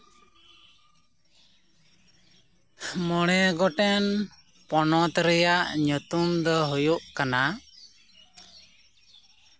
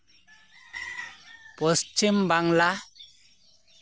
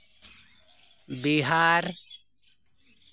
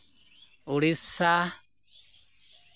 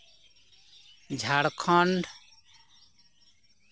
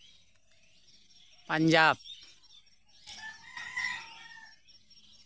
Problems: constant background noise